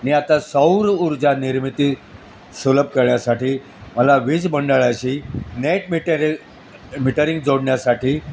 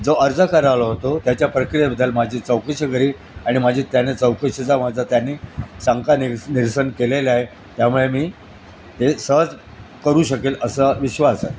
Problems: constant background noise, background conversations at intervals